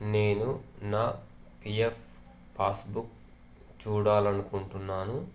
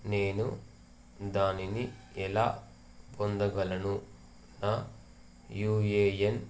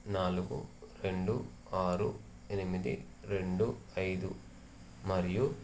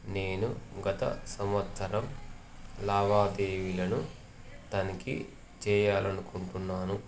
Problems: none marked